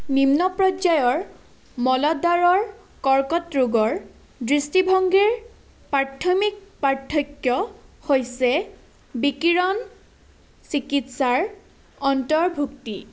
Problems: none marked